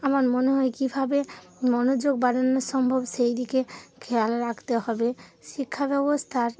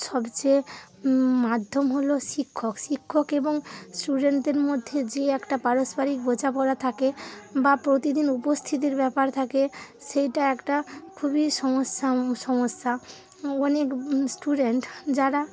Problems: none marked